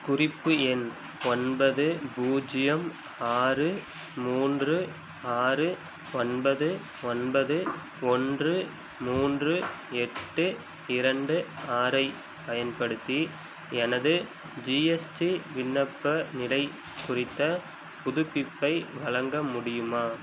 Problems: constant background noise